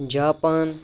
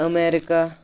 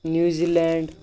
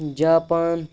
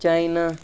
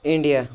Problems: none marked